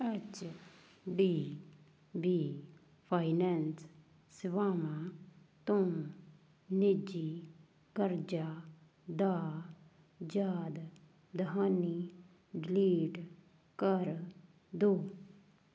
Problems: background sounds at intervals